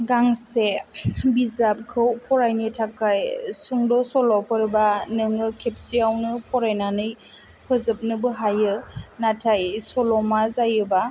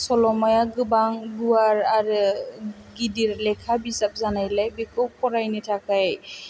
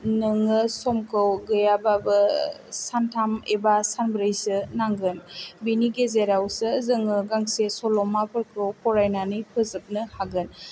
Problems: low volume